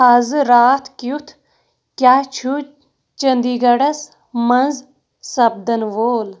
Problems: background sounds at intervals